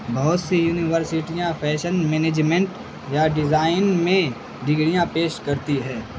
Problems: constant background noise